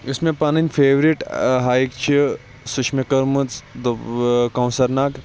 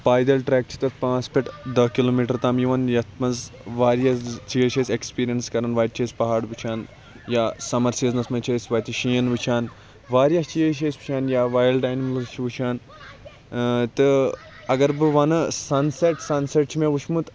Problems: constant background noise, background conversations at intervals